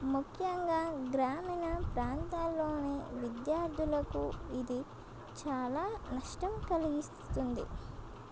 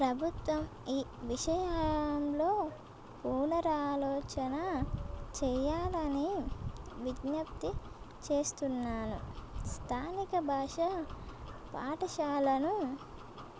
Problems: constant background noise